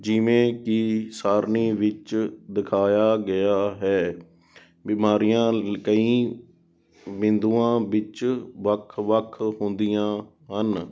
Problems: background sounds at intervals